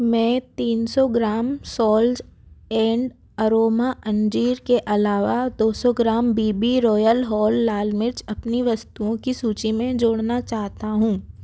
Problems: none marked